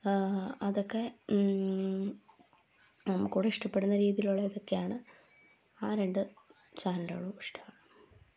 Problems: low volume